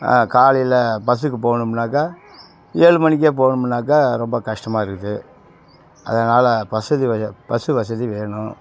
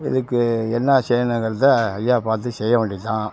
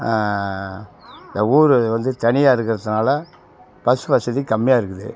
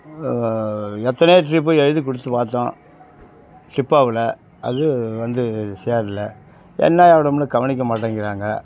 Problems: constant background noise